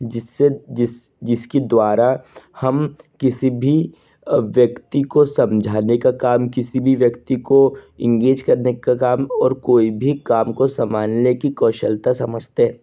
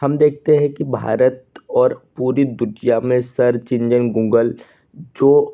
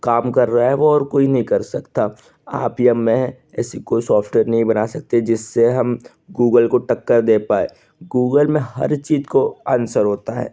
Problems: none marked